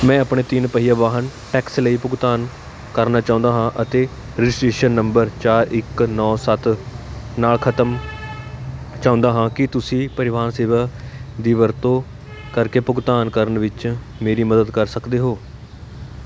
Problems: constant background noise